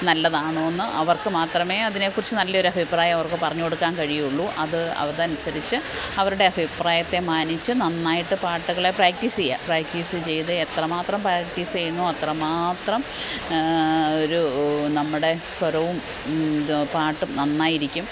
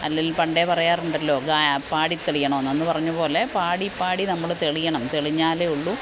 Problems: constant background noise